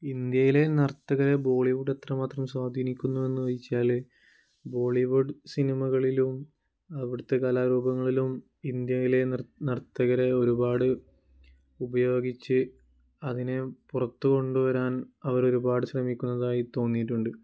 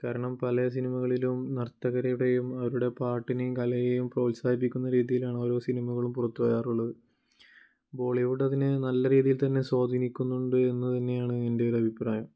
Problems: low volume